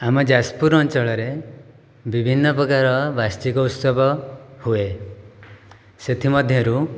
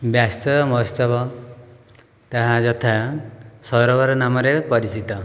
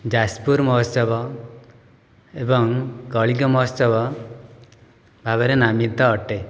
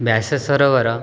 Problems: background sounds at intervals